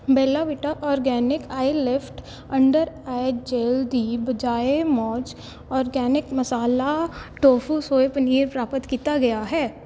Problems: none marked